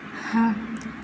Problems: low volume